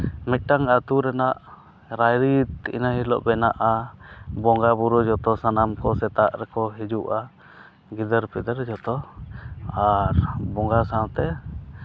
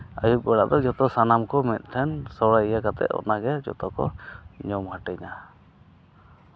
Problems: none marked